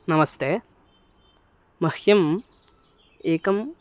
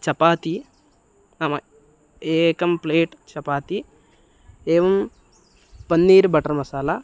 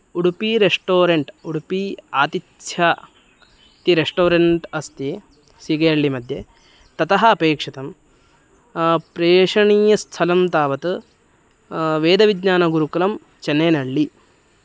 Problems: none marked